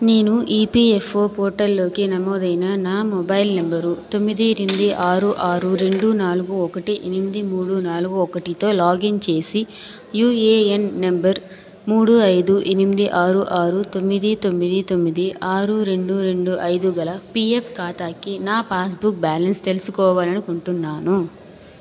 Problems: background sounds at intervals, continuous background conversations